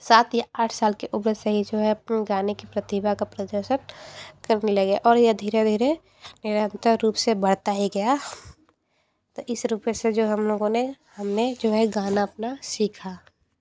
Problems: constant background noise, background conversations at intervals